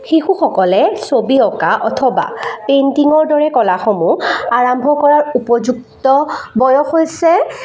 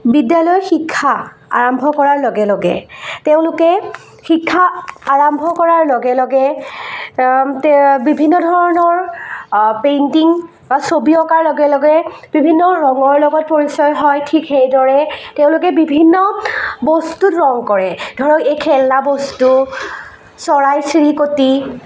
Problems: constant background noise, echo